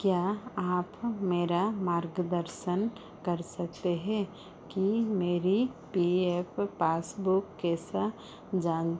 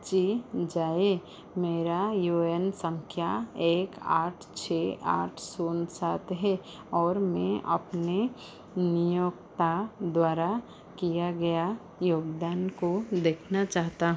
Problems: constant background noise